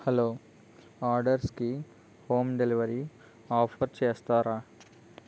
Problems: none marked